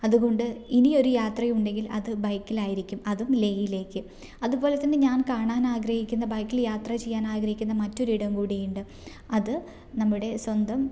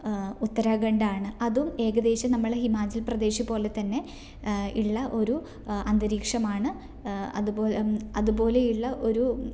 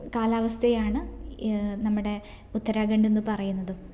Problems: none marked